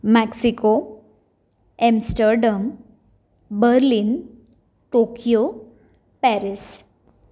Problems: background sounds at intervals